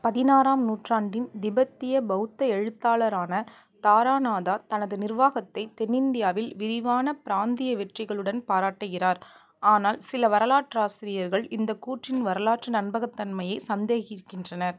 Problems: none marked